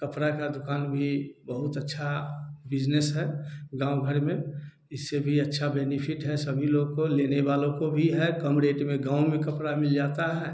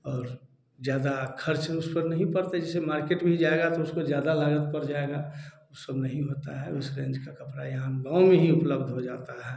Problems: none marked